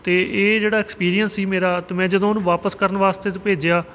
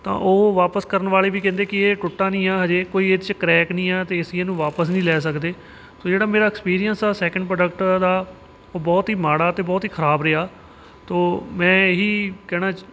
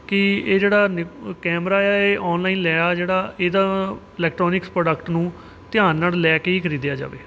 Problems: background sounds at intervals